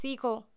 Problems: none marked